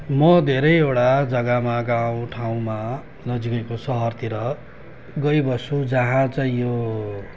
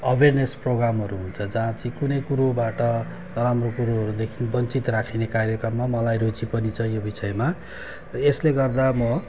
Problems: constant background noise